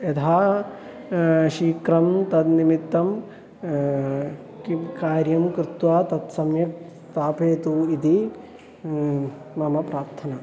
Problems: none marked